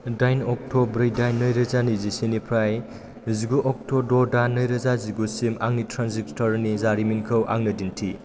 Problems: constant background noise